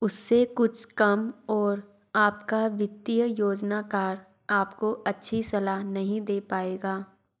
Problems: none marked